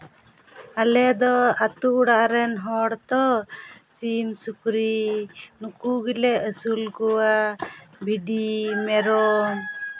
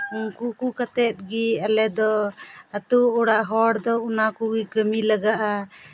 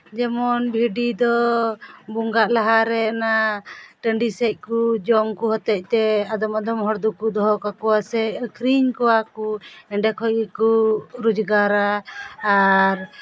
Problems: constant background noise